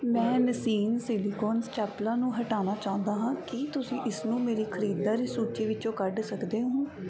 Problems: background sounds at intervals